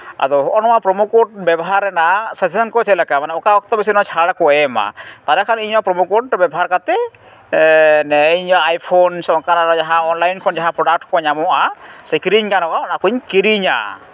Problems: none marked